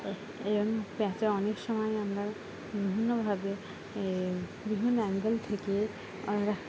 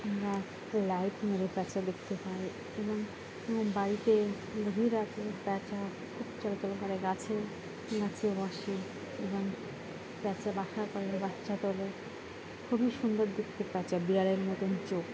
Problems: constant background noise